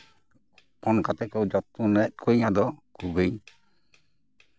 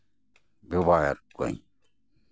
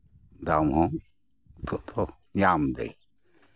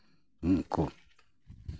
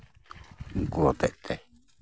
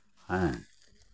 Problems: background sounds at intervals